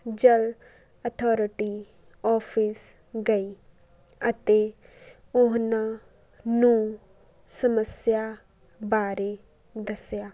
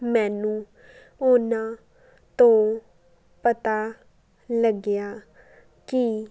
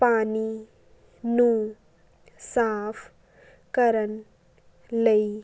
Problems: none marked